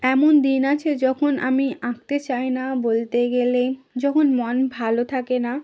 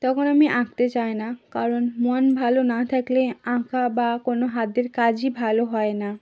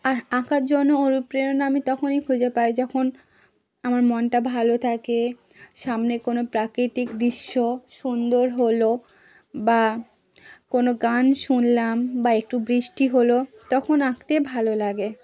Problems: none marked